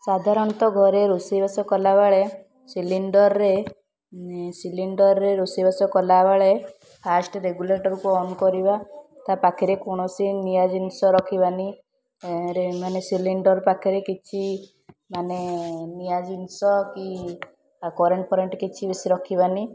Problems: constant background noise, continuous background conversations